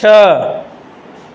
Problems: constant background noise, echo